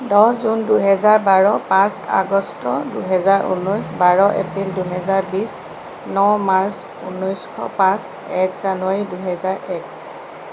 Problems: constant background noise